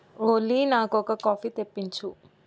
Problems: background sounds at intervals